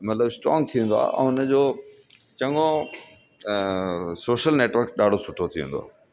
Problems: constant background noise, echo